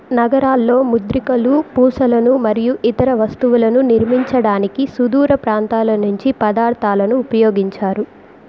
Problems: background sounds at intervals